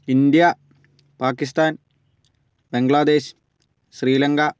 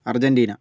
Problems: none marked